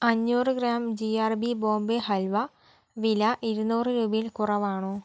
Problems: none marked